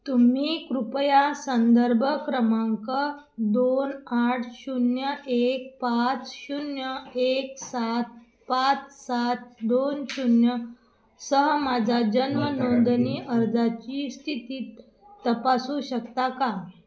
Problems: none marked